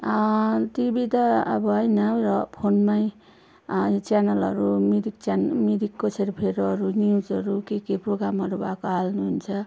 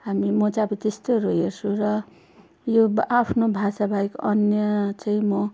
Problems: constant background noise